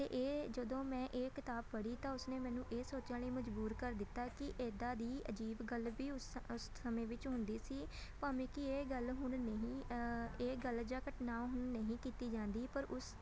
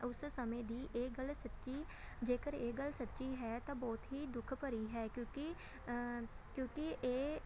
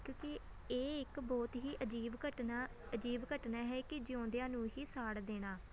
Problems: constant background noise, continuous background conversations